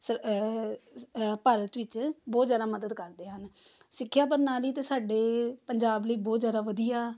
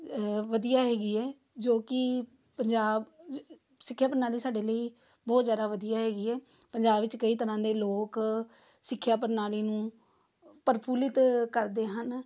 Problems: none marked